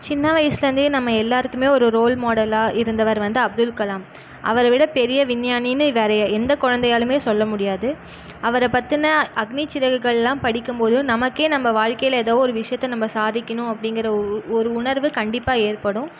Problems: background sounds at intervals